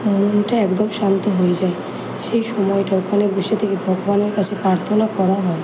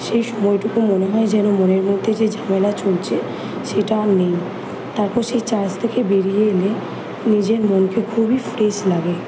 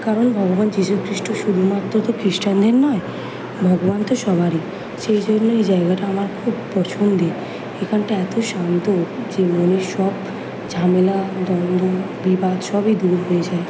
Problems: none marked